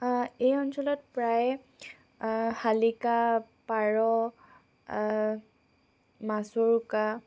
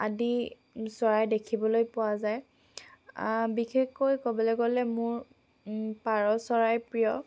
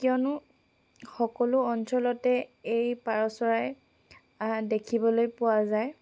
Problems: background sounds at intervals